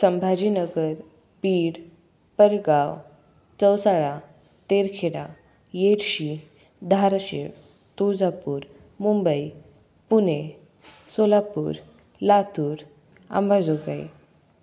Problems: none marked